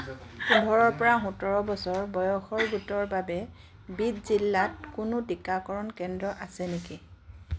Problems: background sounds at intervals